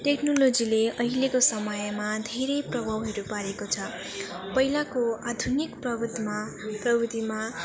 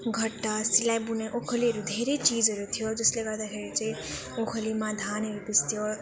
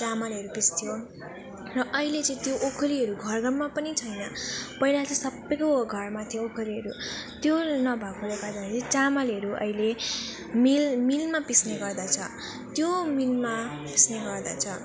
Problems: none marked